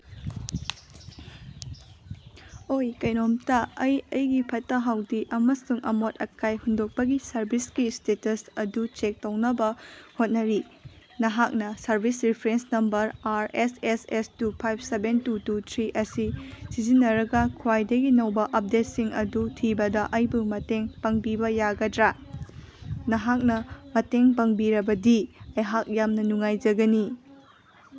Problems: none marked